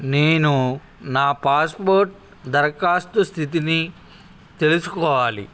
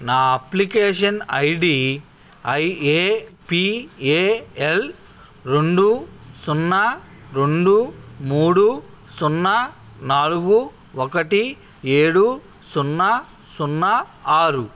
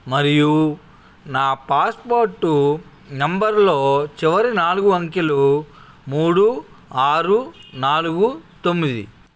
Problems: constant background noise, background conversations at intervals